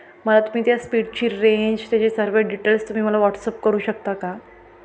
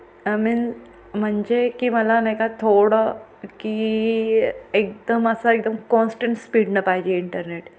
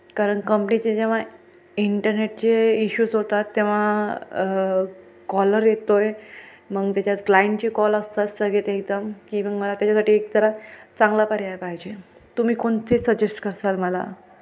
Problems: constant background noise, continuous background conversations